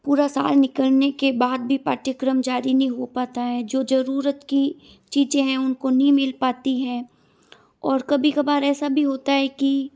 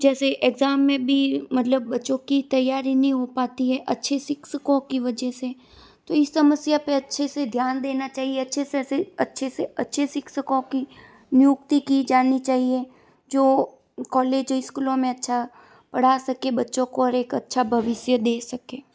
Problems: none marked